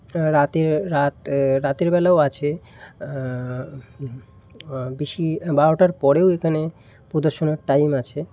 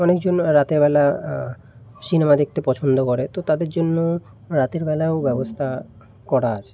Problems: constant background noise